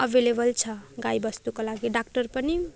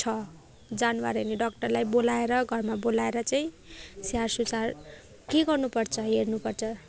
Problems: background sounds at intervals